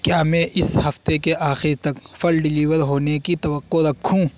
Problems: constant background noise